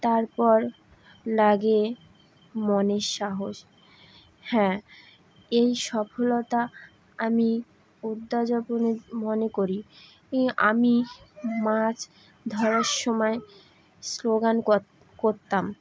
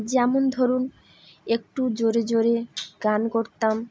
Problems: none marked